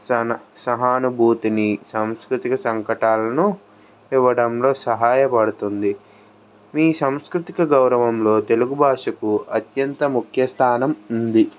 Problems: background sounds at intervals